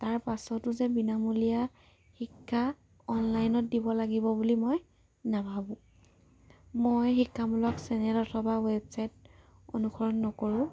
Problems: low volume